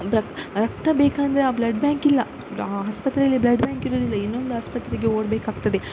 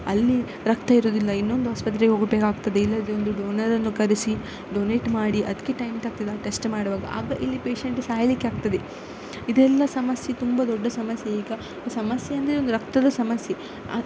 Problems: constant background noise